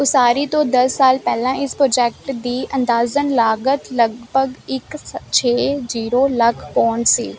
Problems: constant background noise